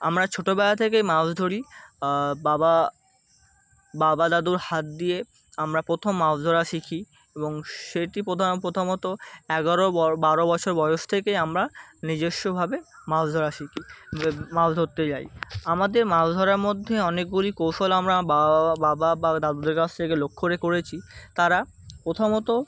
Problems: constant background noise